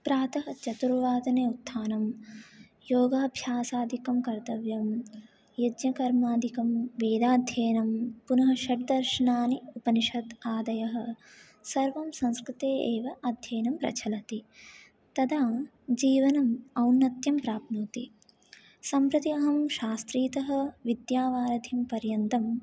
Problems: low volume